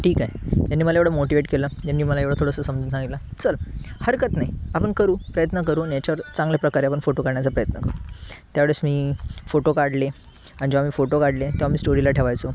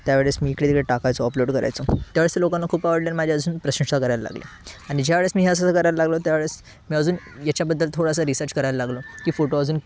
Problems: constant background noise, background conversations at intervals